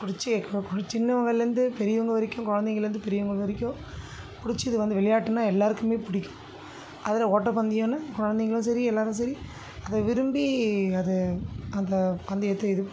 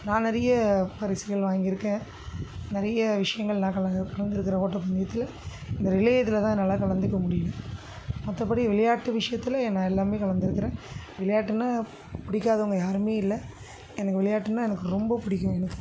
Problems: constant background noise